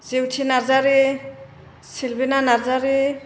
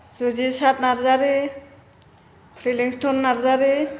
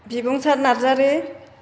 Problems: none marked